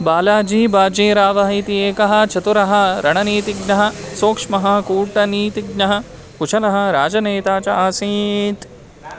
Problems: constant background noise, continuous background conversations